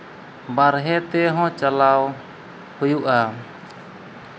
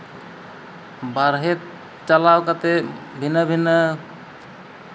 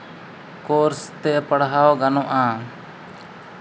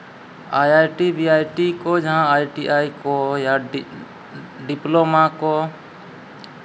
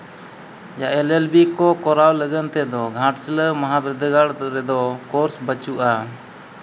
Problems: none marked